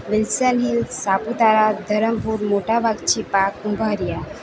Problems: constant background noise